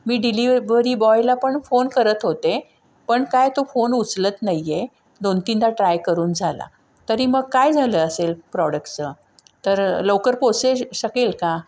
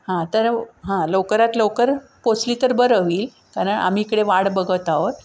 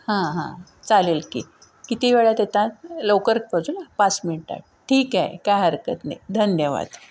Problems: background sounds at intervals